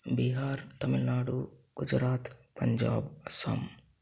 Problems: none marked